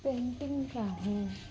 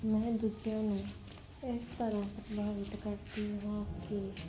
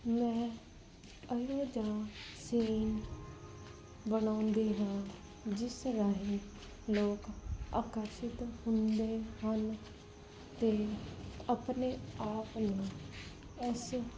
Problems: constant background noise